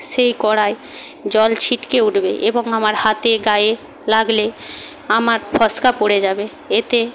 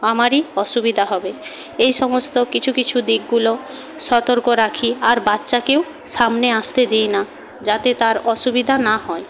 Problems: background sounds at intervals